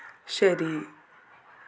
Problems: constant background noise, low volume